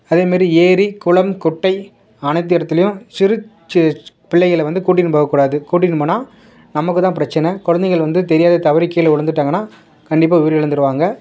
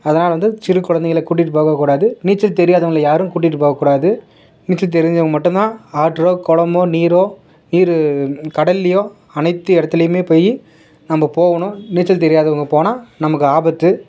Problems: background sounds at intervals